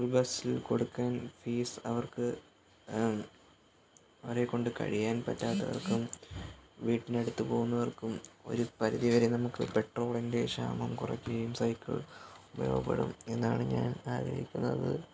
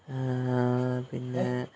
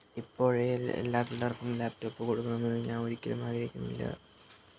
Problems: background sounds at intervals